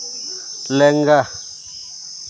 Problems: constant background noise